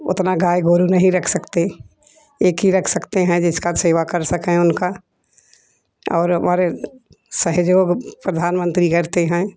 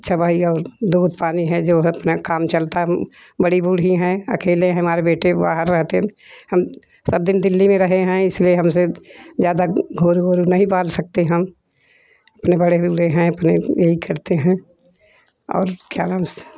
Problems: none marked